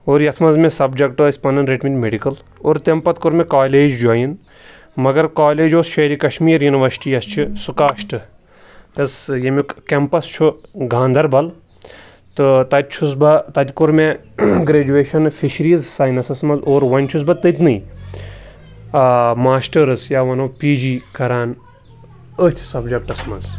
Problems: background sounds at intervals